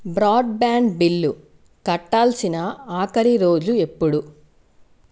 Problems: none marked